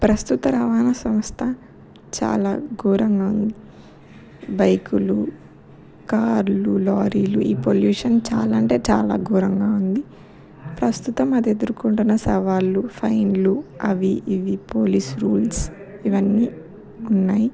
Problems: background conversations at intervals